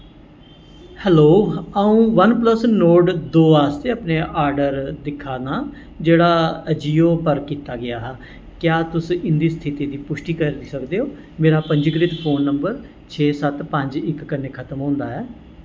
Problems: constant background noise, echo